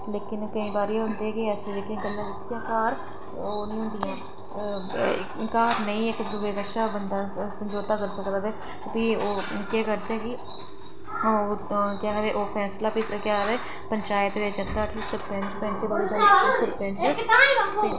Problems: constant background noise